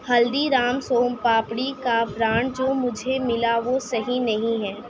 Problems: none marked